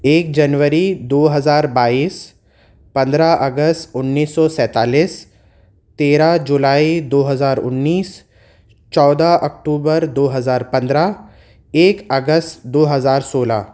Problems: none marked